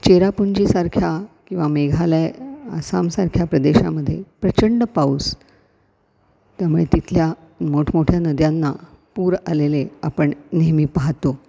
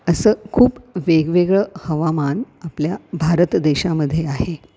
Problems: constant background noise